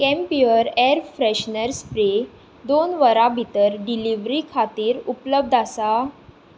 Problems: none marked